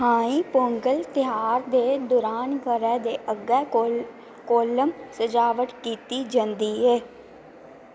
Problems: none marked